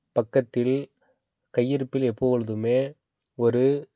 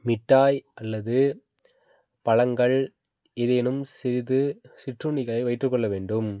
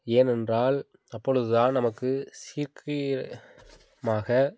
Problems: background sounds at intervals